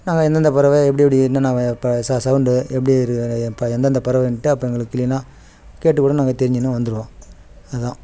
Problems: background sounds at intervals